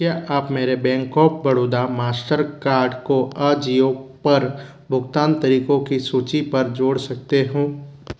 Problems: none marked